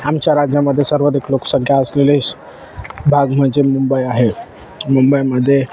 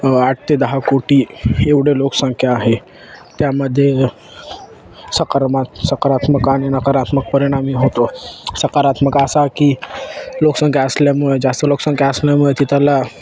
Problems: constant background noise, continuous background conversations